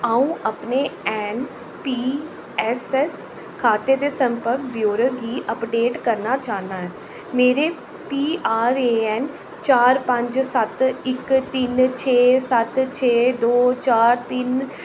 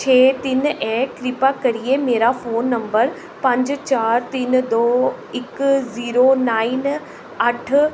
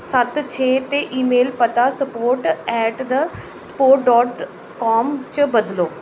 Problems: constant background noise, echo